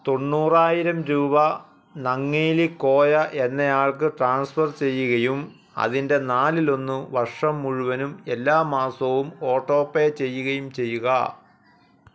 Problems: background sounds at intervals